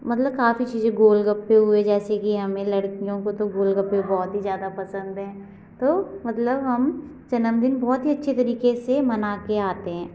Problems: none marked